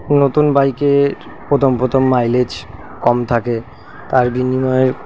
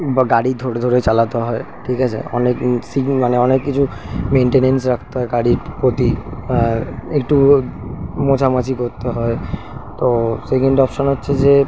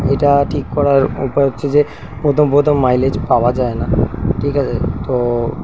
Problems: none marked